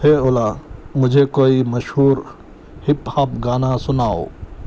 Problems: background sounds at intervals